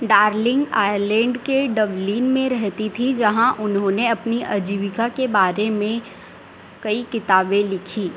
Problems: constant background noise